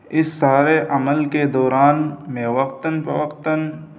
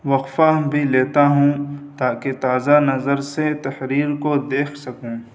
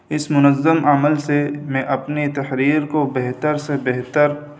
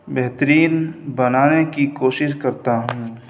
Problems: constant background noise